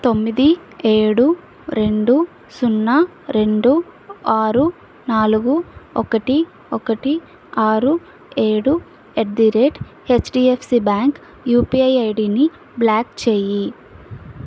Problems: none marked